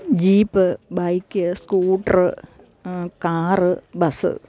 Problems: none marked